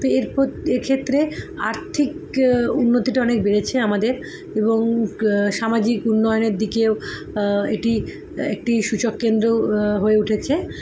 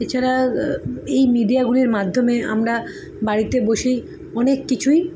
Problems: constant background noise